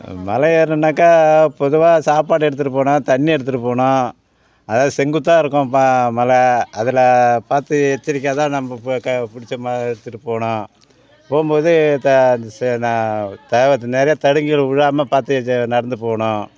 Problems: constant background noise, background conversations at intervals